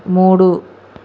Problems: constant background noise